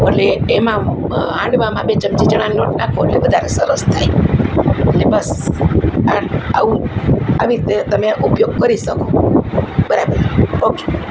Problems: constant background noise